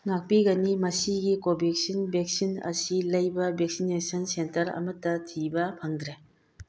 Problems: none marked